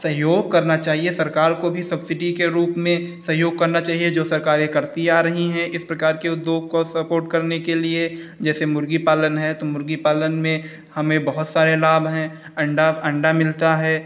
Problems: none marked